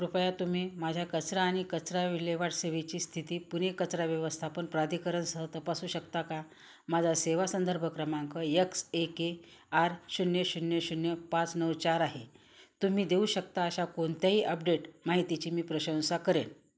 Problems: none marked